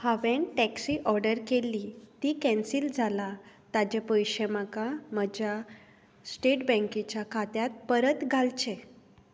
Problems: constant background noise